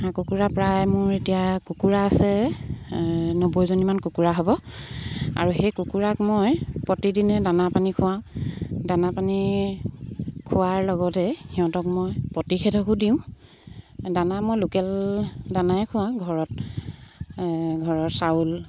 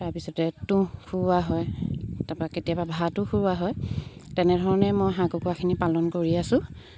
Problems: background sounds at intervals